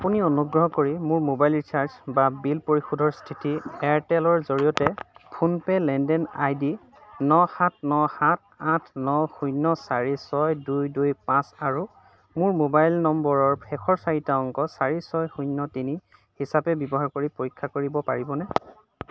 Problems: none marked